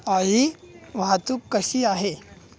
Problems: none marked